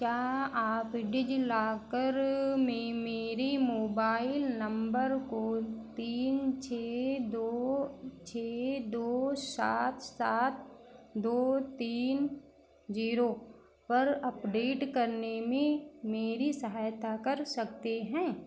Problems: none marked